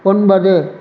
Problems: none marked